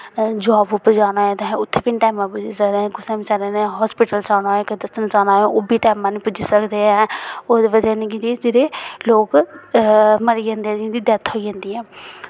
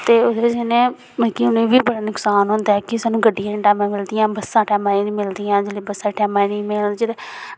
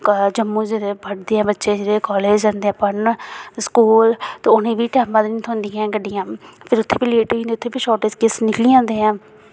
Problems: none marked